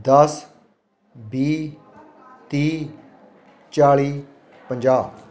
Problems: continuous background conversations